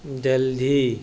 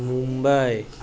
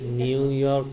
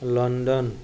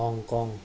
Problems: constant background noise